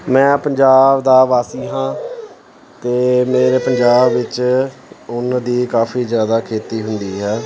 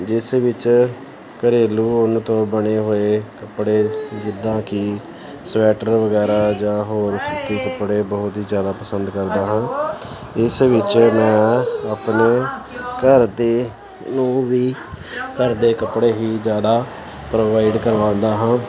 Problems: continuous background conversations